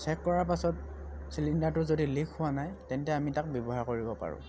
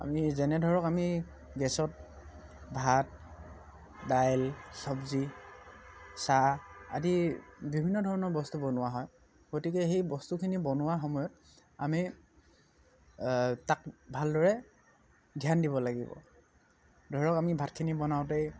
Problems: none marked